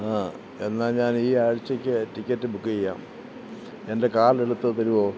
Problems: constant background noise